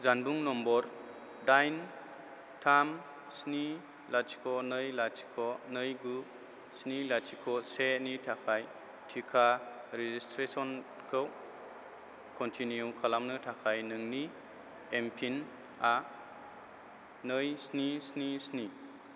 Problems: none marked